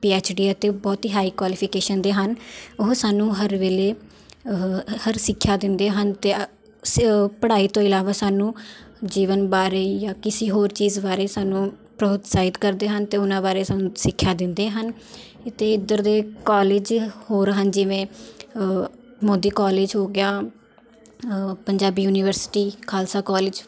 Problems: background sounds at intervals